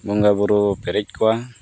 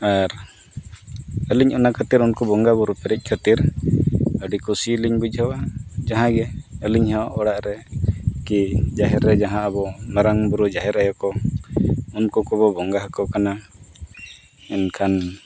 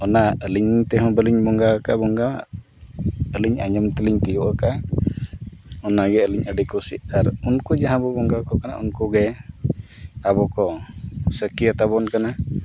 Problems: constant background noise